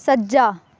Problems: background conversations at intervals